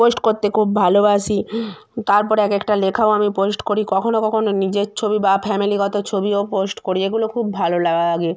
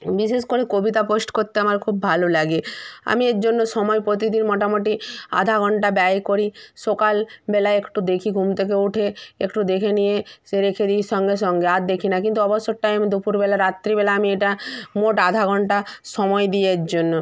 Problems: none marked